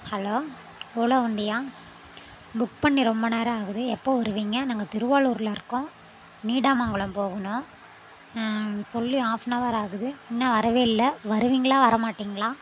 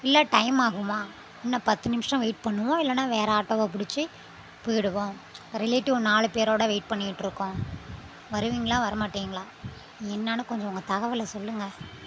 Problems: none marked